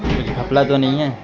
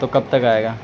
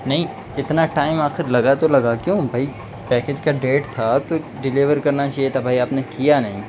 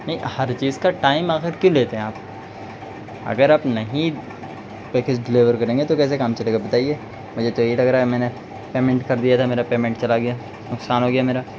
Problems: constant background noise